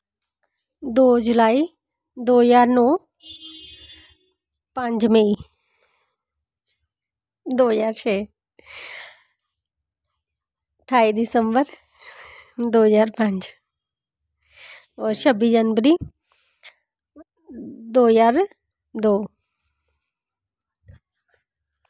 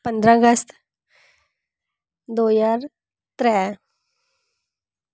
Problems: background sounds at intervals